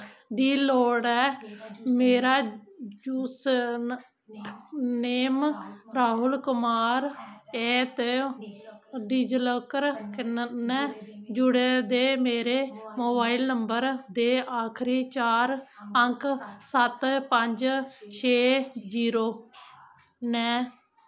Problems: constant background noise